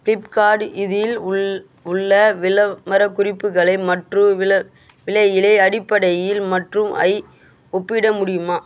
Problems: constant background noise